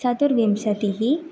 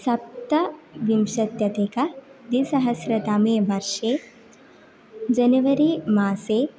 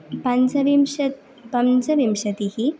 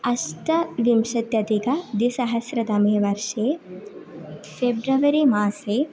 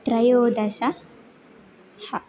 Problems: constant background noise